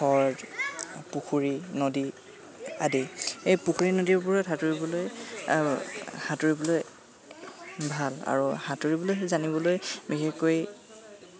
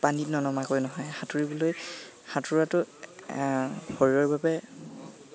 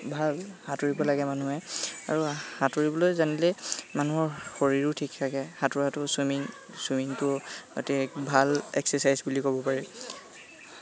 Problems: constant background noise, continuous background conversations